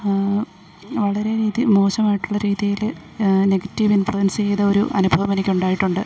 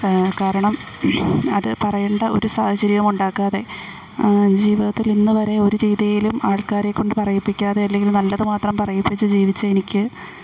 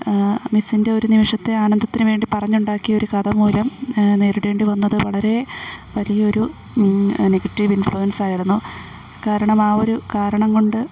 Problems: none marked